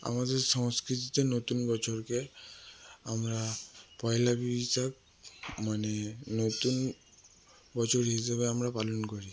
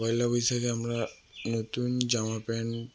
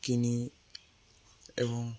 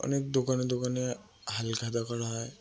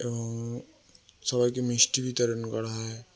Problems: constant background noise